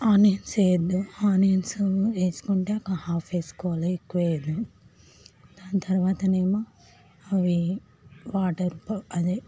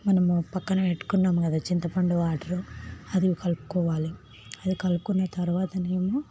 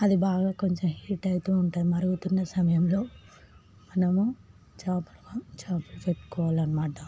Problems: background sounds at intervals, background conversations at intervals, low volume